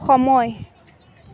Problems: continuous background conversations